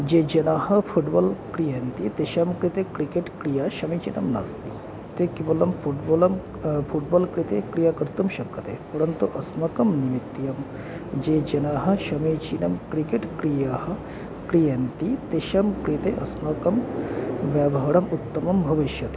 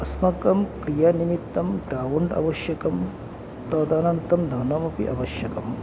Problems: constant background noise